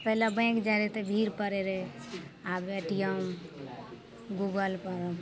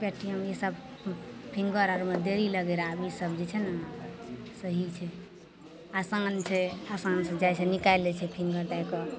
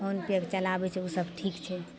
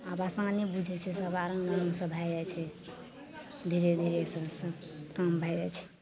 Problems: none marked